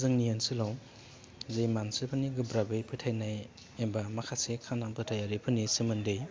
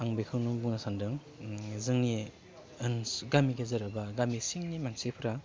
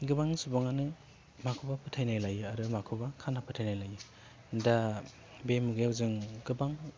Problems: low volume